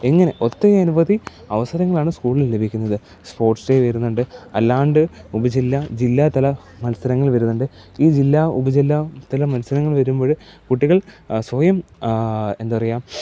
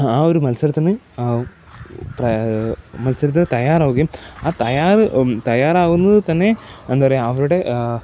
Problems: background sounds at intervals